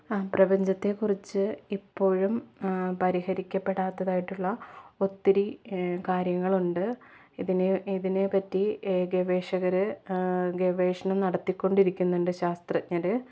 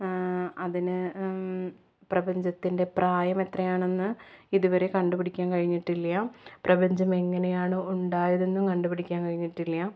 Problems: low volume